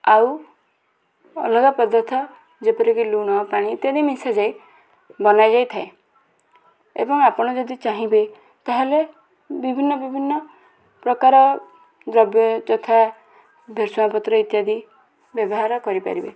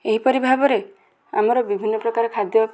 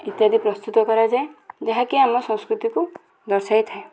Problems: constant background noise, continuous background conversations